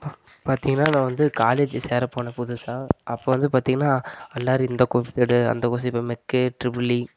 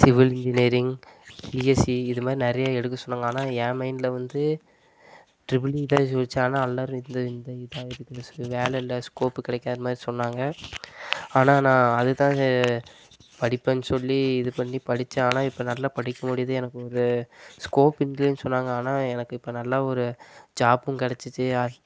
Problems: none marked